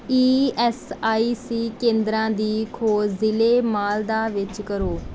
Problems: background sounds at intervals